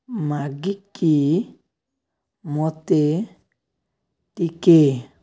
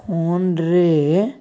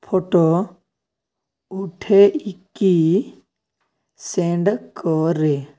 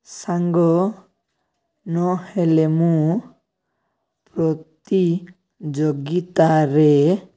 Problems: none marked